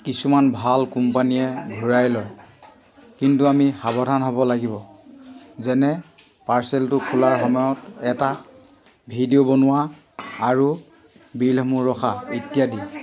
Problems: constant background noise